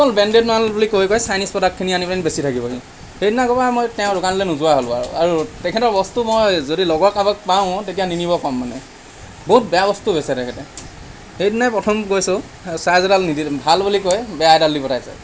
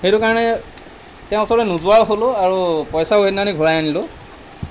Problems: constant background noise